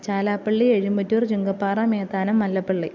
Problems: none marked